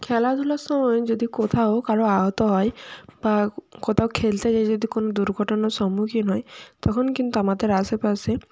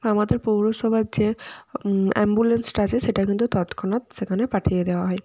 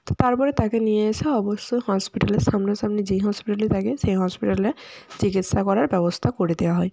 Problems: none marked